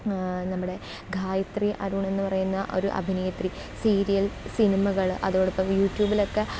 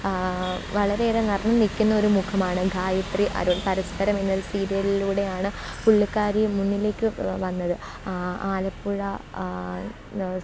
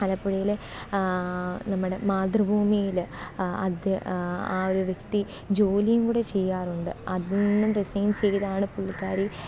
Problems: none marked